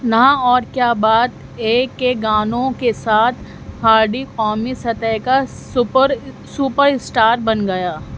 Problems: constant background noise